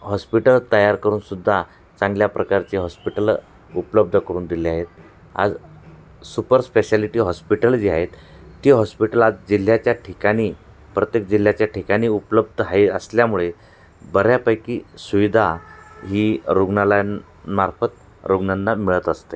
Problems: none marked